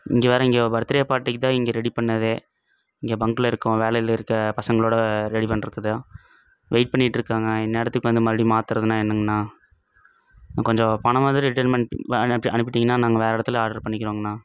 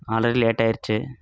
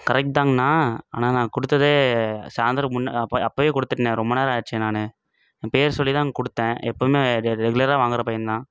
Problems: none marked